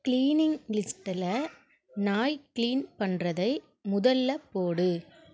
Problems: background sounds at intervals